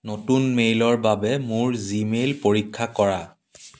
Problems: background sounds at intervals